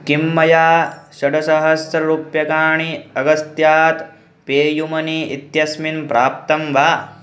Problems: constant background noise